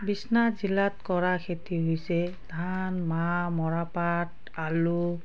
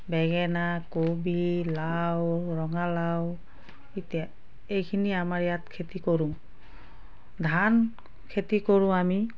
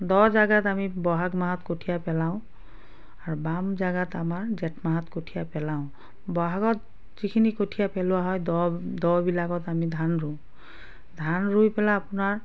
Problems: background sounds at intervals, background conversations at intervals